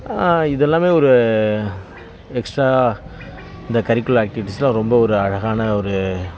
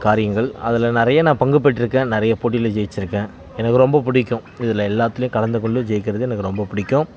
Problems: background sounds at intervals